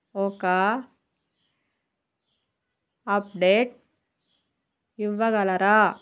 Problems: none marked